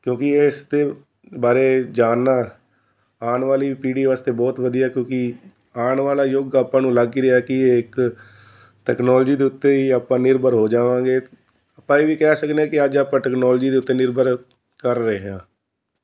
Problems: constant background noise